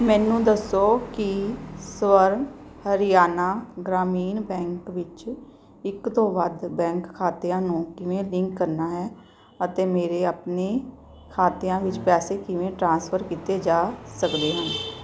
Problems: background sounds at intervals